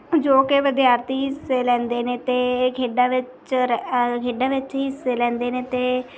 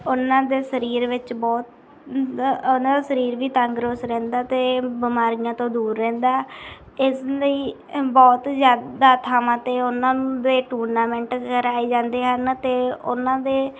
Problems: background sounds at intervals